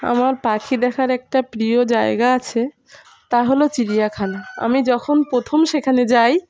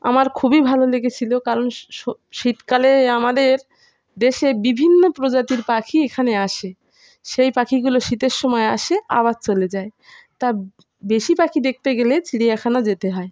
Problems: constant background noise